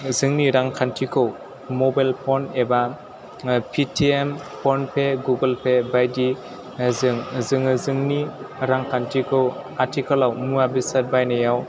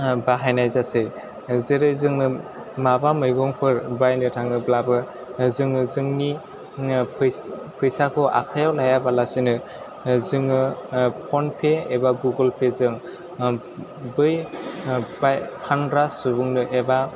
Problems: constant background noise, background conversations at intervals